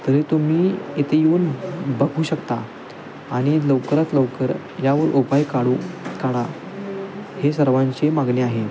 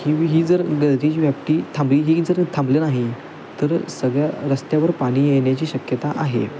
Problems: constant background noise, background conversations at intervals